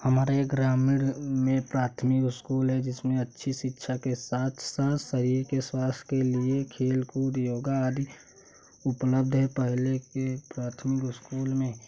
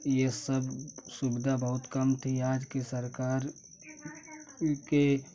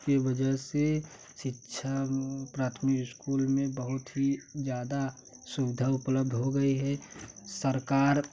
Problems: constant background noise